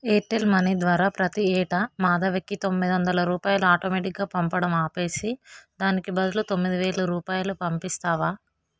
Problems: background sounds at intervals